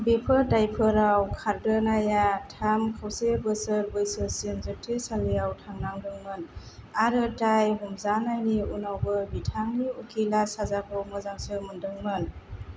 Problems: none marked